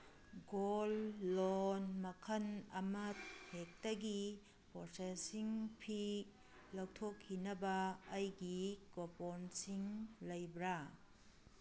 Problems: none marked